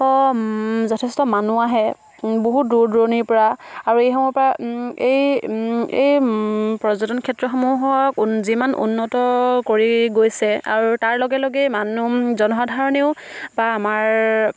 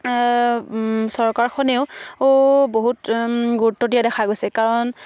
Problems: background sounds at intervals